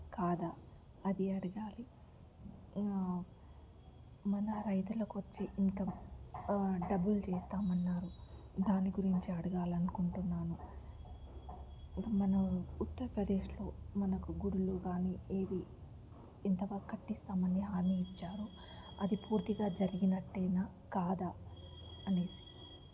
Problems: low volume